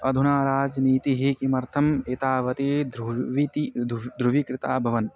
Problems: constant background noise